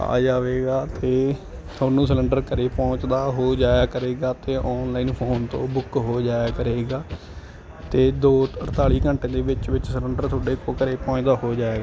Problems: constant background noise